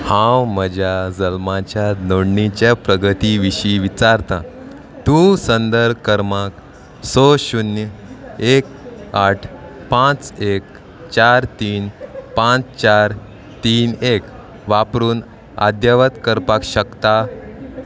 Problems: constant background noise